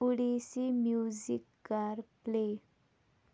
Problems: none marked